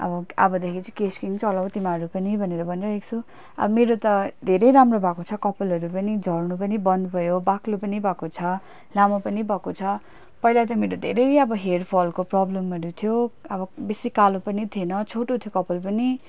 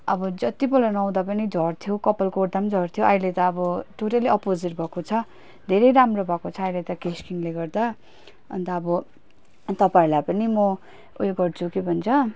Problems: constant background noise